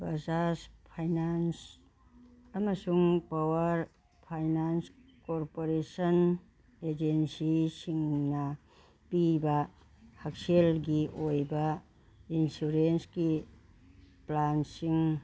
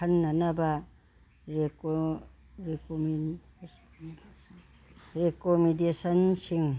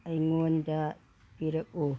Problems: background sounds at intervals, background conversations at intervals